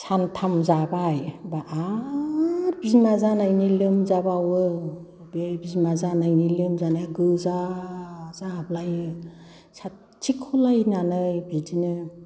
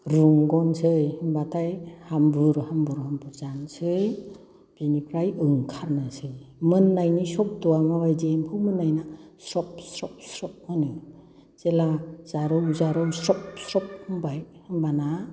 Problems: background conversations at intervals